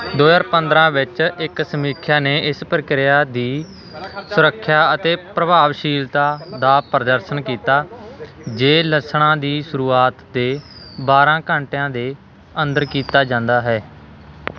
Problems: none marked